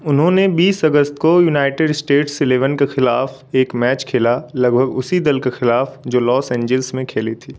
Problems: constant background noise